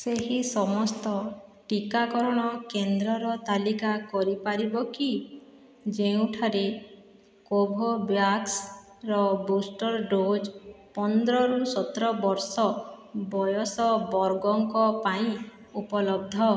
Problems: none marked